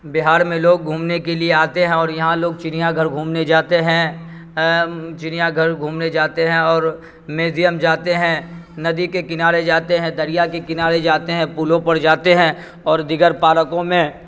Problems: constant background noise